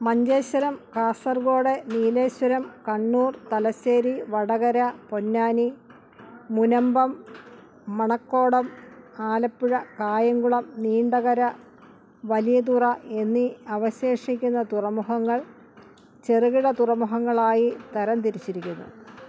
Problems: background sounds at intervals